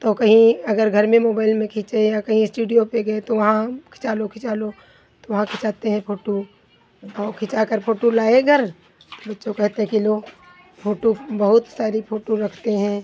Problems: constant background noise